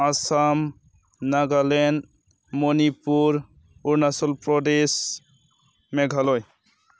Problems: none marked